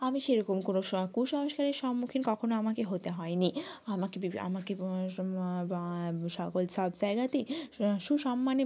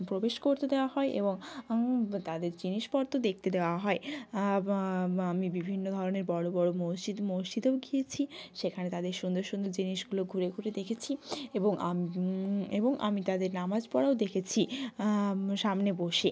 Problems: background conversations at intervals